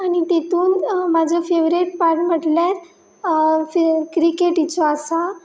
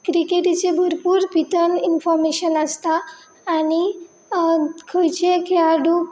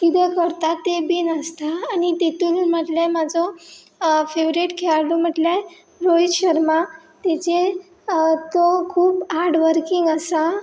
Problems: none marked